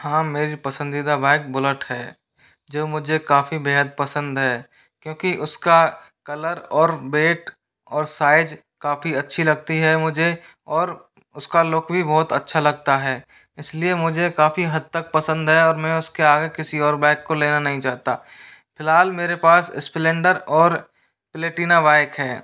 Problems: background sounds at intervals